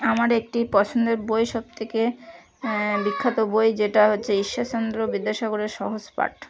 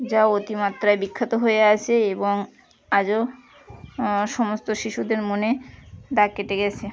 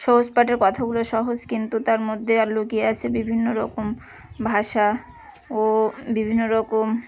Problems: continuous background conversations